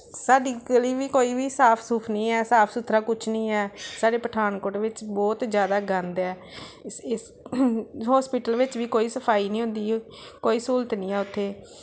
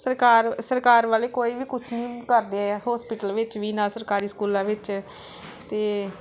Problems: background sounds at intervals